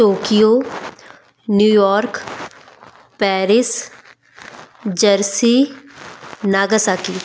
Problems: constant background noise